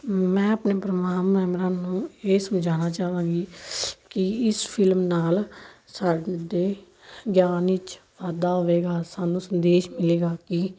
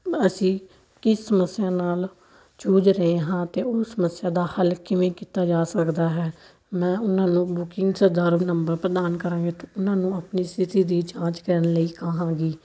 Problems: none marked